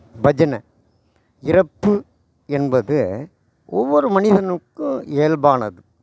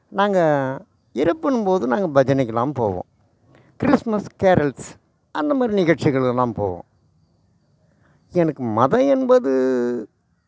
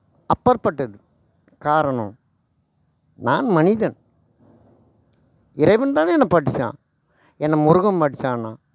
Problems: none marked